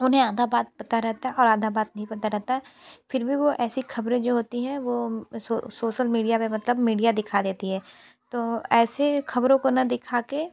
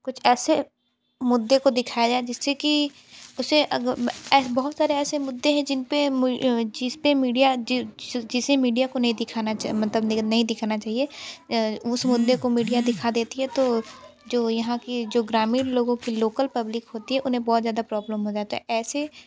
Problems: background sounds at intervals